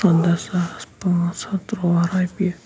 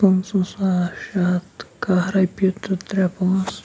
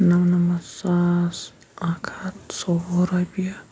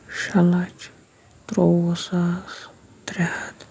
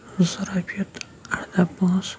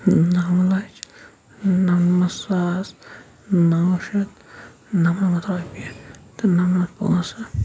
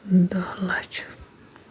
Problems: background sounds at intervals, low volume